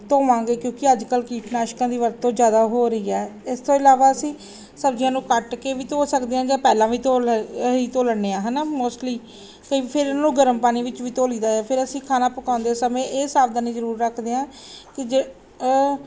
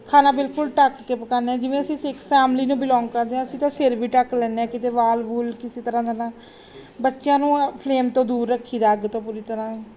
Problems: background sounds at intervals